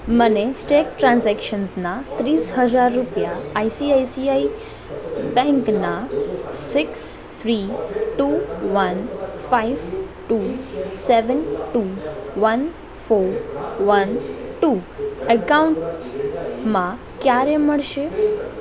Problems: constant background noise